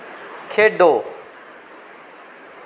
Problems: constant background noise